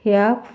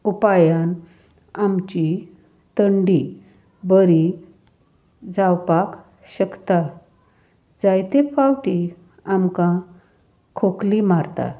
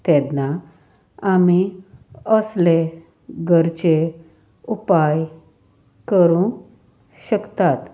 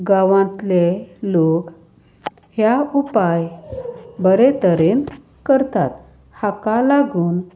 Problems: none marked